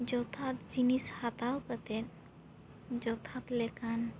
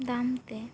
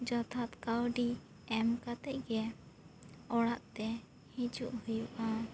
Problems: constant background noise